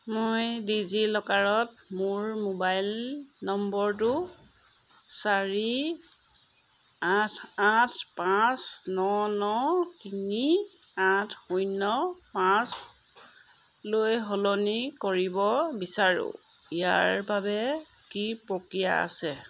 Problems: background sounds at intervals